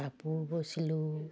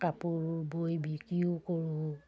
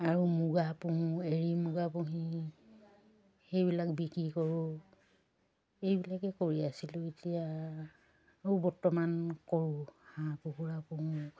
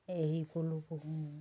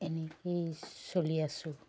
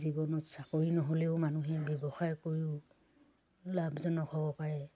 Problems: none marked